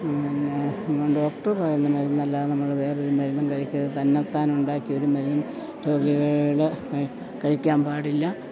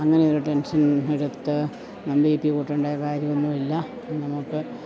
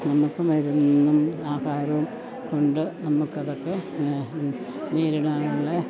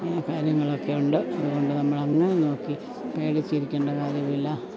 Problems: none marked